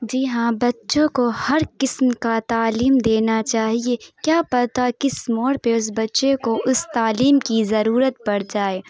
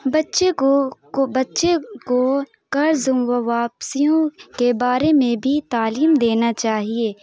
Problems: none marked